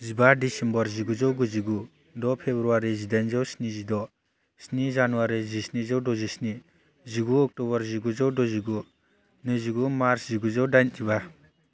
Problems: constant background noise